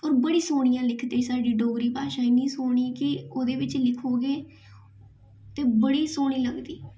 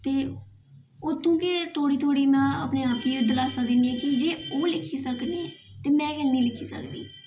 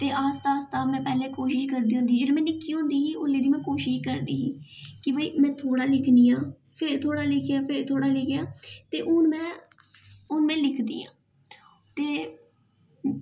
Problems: background sounds at intervals, echo